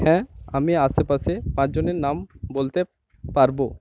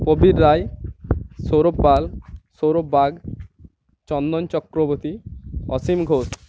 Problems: none marked